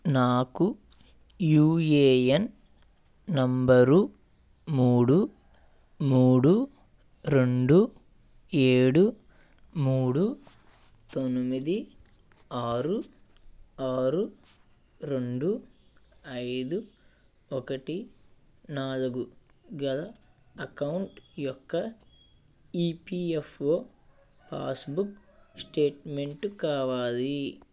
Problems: constant background noise